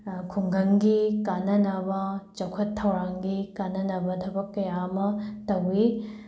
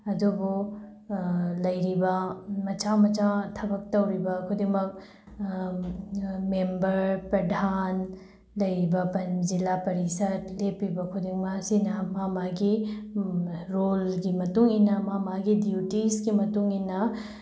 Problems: background sounds at intervals